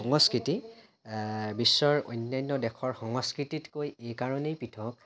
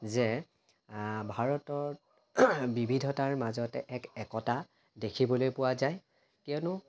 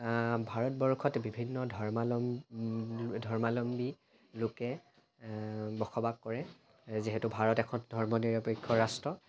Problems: none marked